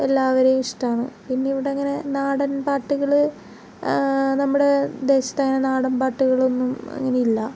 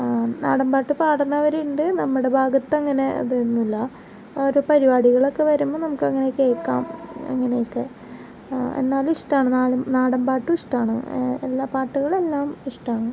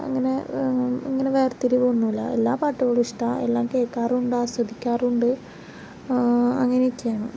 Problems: background sounds at intervals